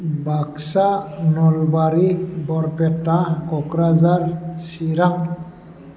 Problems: constant background noise